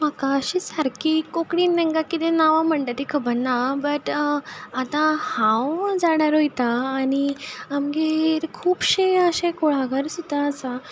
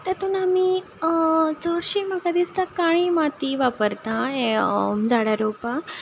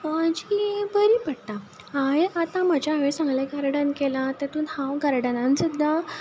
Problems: none marked